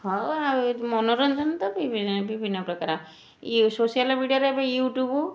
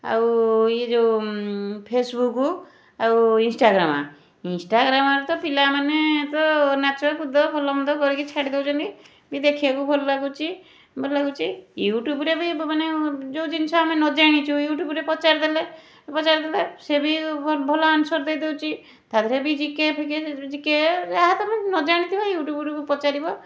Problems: none marked